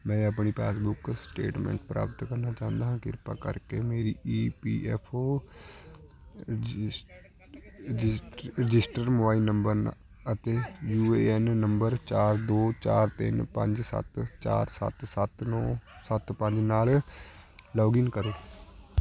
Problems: constant background noise, continuous background conversations